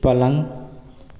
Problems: constant background noise